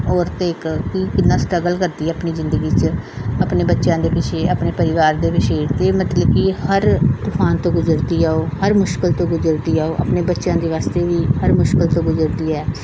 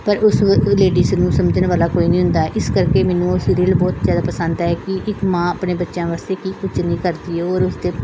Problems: background sounds at intervals, background conversations at intervals